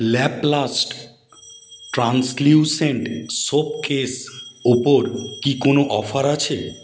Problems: constant background noise